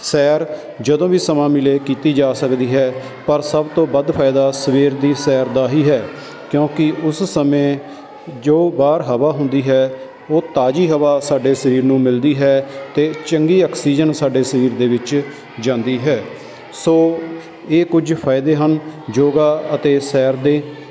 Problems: constant background noise